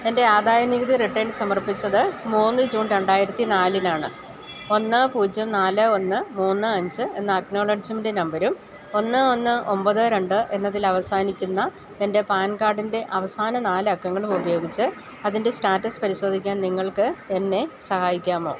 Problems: none marked